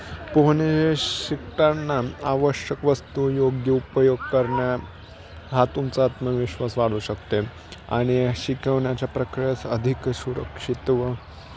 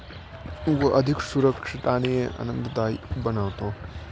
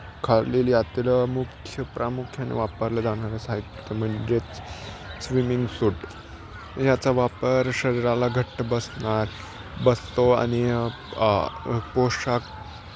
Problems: constant background noise